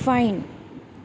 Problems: constant background noise